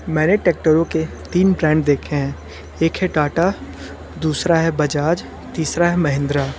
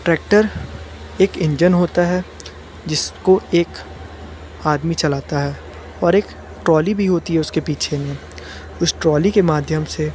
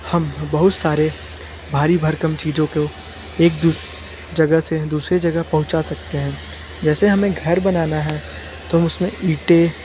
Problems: constant background noise